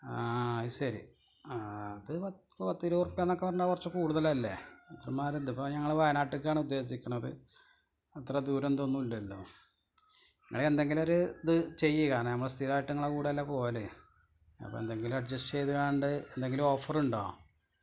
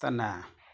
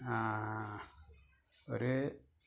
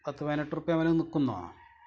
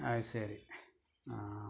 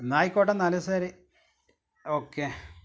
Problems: background sounds at intervals